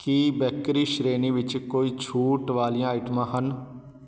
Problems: constant background noise